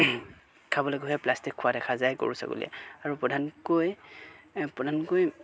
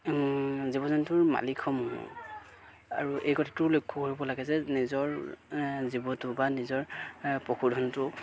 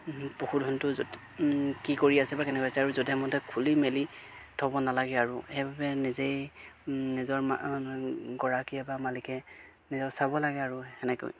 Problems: background sounds at intervals